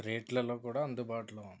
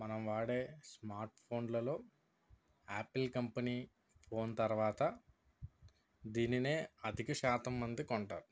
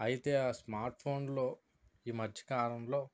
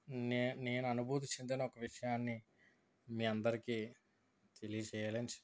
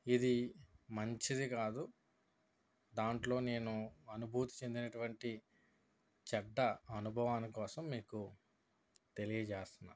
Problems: none marked